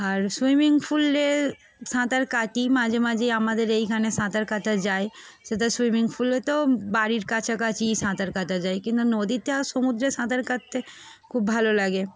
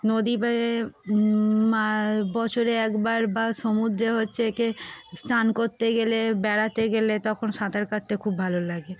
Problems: background sounds at intervals